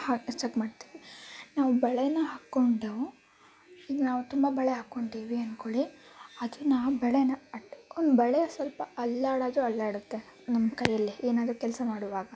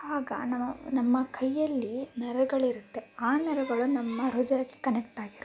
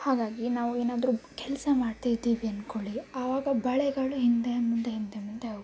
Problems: background sounds at intervals